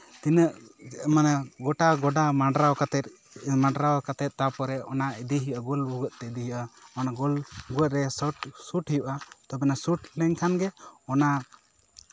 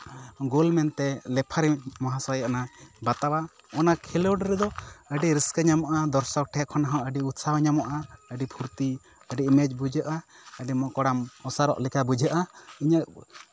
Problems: background sounds at intervals, background conversations at intervals